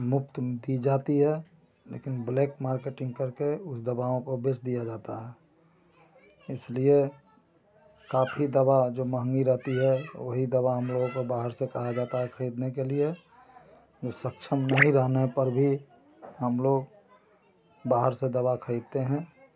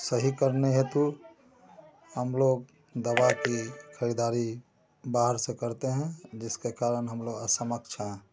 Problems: constant background noise